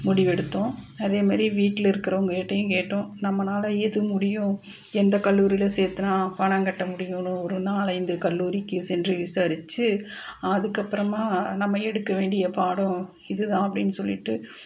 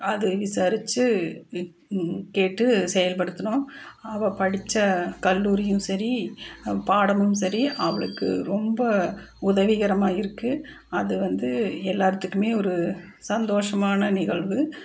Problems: none marked